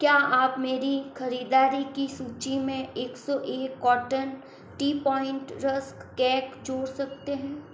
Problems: constant background noise